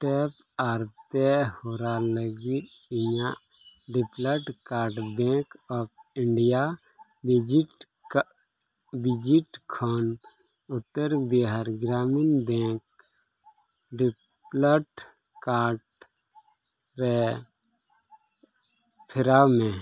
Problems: none marked